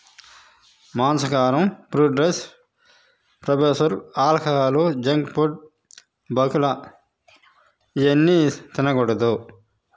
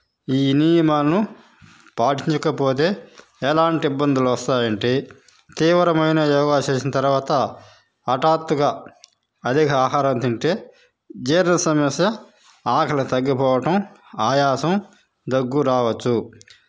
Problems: none marked